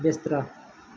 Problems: background sounds at intervals